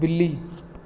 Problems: none marked